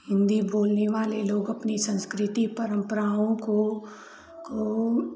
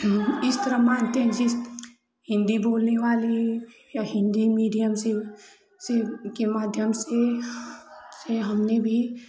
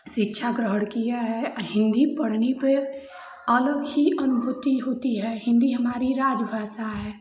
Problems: none marked